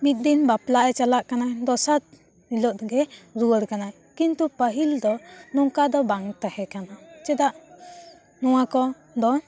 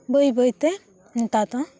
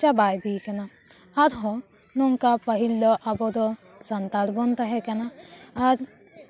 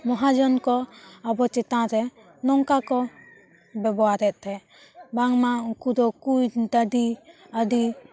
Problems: constant background noise, continuous background conversations